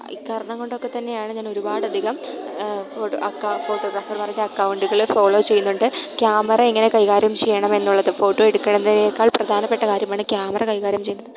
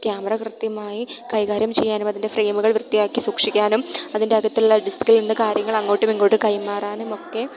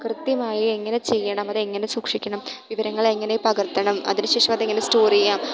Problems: background sounds at intervals